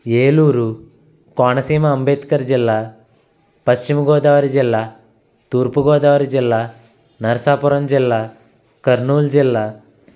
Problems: constant background noise